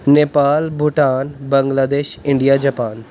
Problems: background sounds at intervals